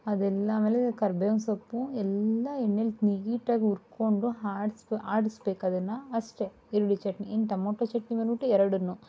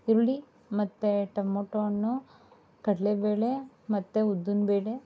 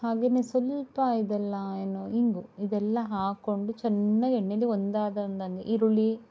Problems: none marked